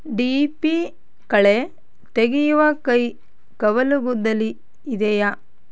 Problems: none marked